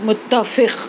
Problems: constant background noise